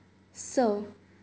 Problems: none marked